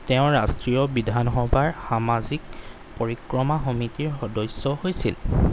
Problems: none marked